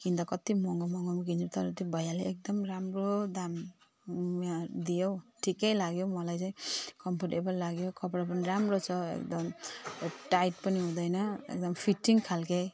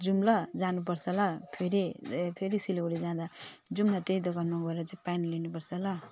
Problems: none marked